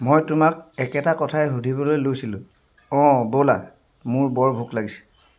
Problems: background sounds at intervals